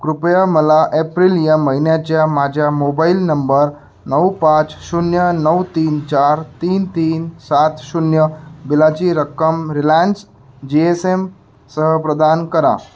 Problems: background sounds at intervals